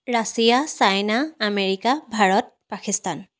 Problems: none marked